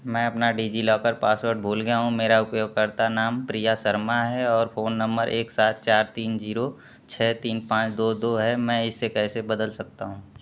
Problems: constant background noise